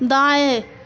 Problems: constant background noise